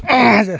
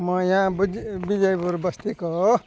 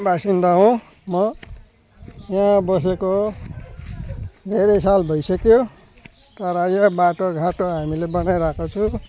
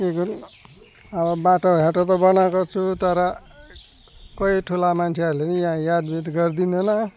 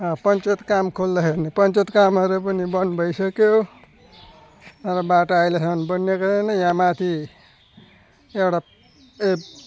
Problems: none marked